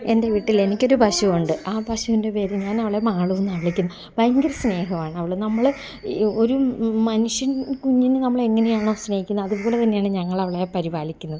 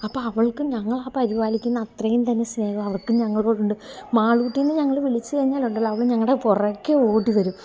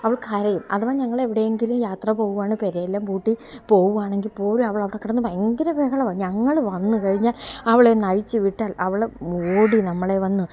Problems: low volume